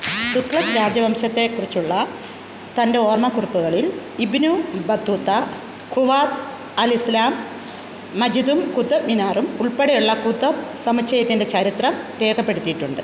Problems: constant background noise